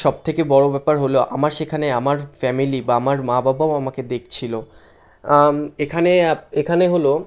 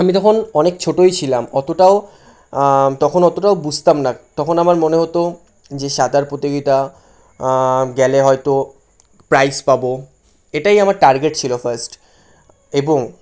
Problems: constant background noise